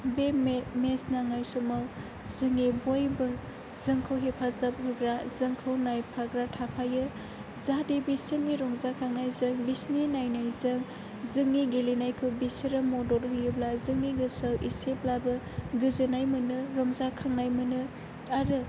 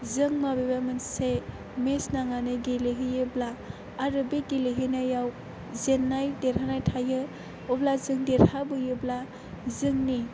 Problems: constant background noise